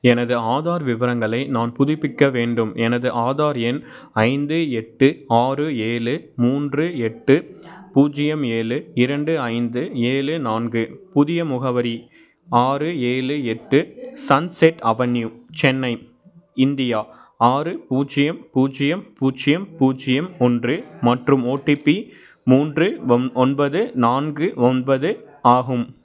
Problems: background sounds at intervals